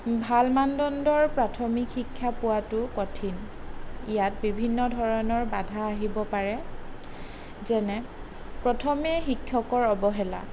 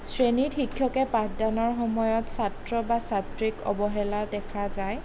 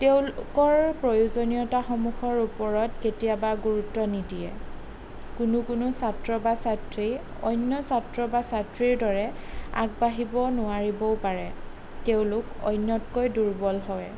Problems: none marked